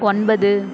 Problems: constant background noise